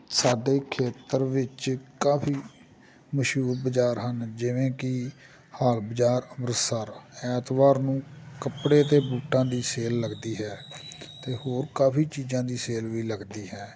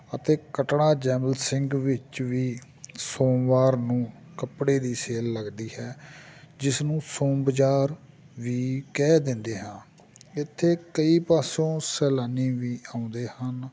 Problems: background sounds at intervals